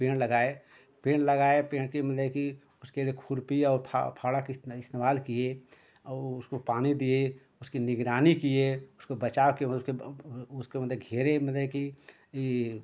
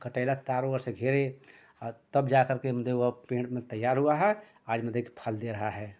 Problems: constant background noise